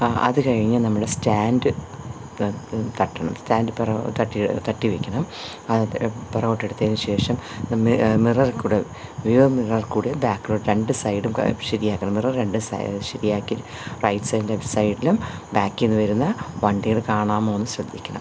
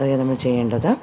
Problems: none marked